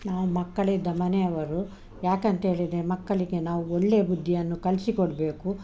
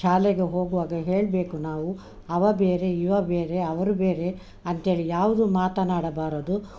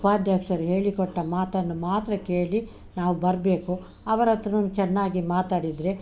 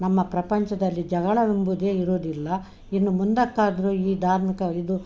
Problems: none marked